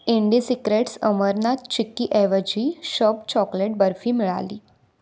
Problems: none marked